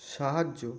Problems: constant background noise